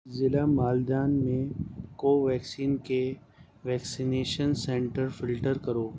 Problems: none marked